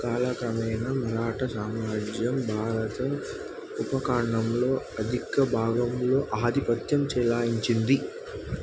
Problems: constant background noise